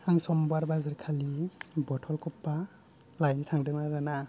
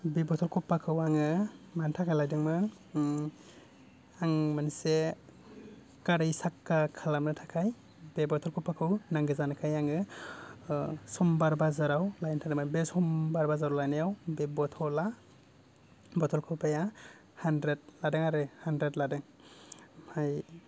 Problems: none marked